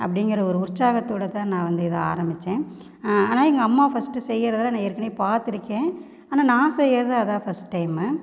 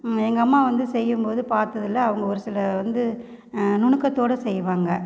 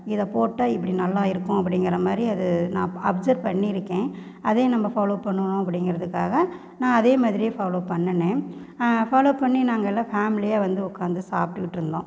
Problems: constant background noise